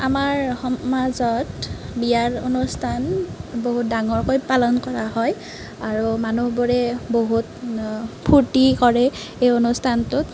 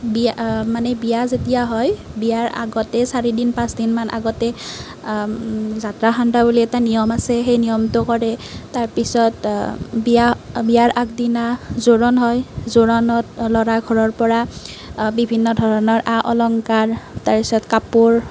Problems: background sounds at intervals